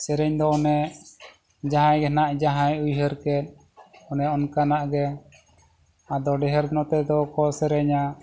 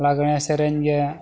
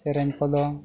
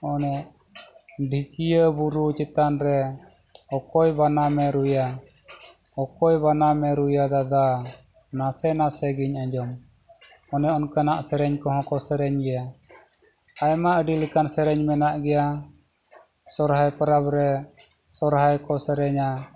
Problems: background sounds at intervals